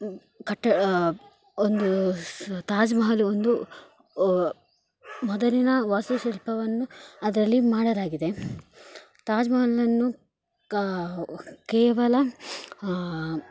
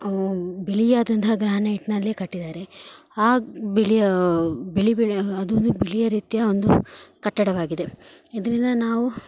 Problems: background sounds at intervals